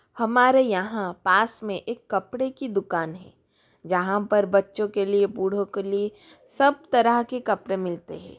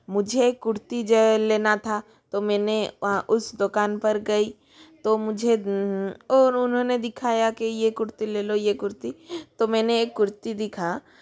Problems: continuous background conversations